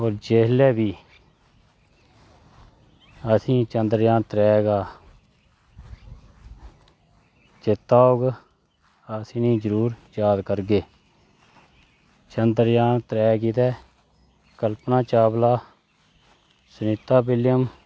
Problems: constant background noise